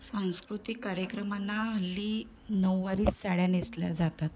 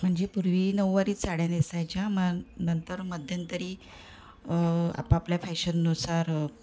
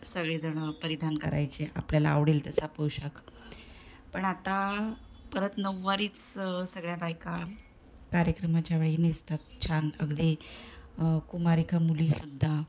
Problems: none marked